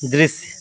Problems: none marked